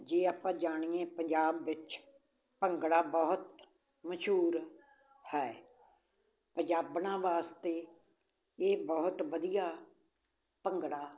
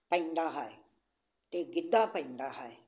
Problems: none marked